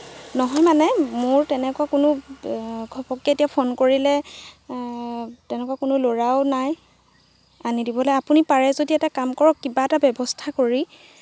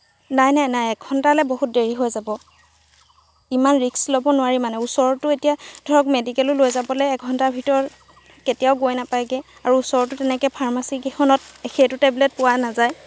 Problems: background sounds at intervals